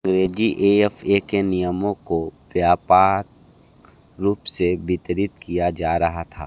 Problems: none marked